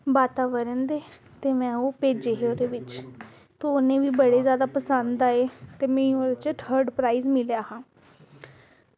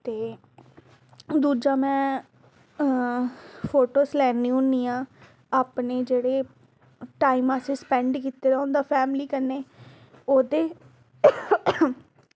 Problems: background sounds at intervals